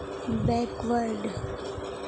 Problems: constant background noise